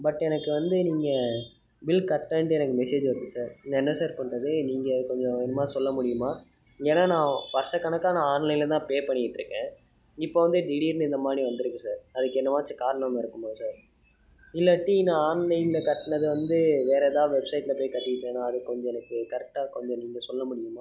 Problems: background sounds at intervals